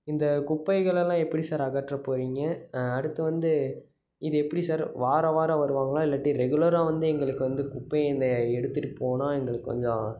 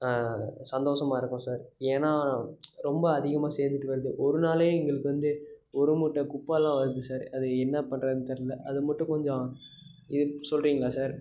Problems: background sounds at intervals